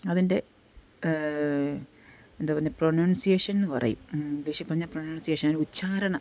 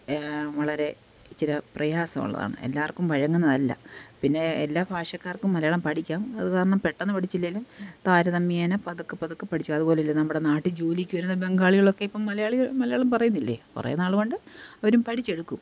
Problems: background sounds at intervals